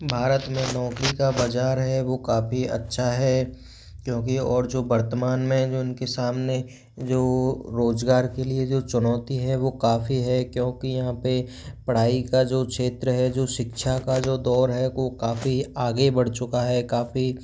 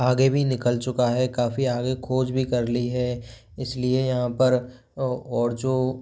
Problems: background sounds at intervals